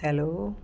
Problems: constant background noise